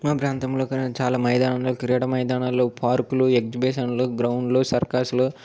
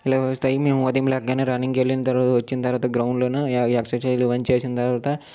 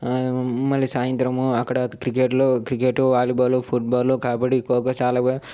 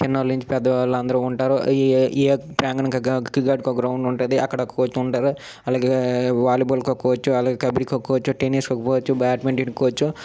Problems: none marked